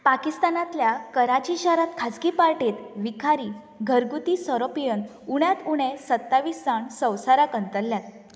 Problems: background sounds at intervals